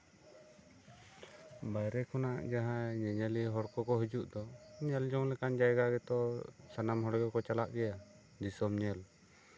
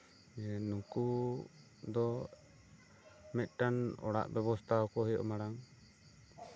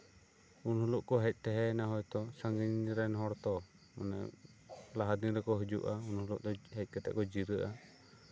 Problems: none marked